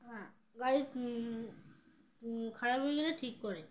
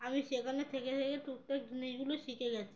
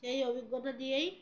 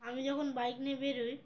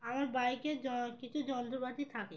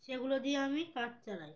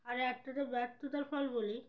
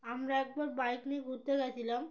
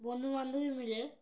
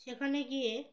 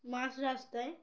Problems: none marked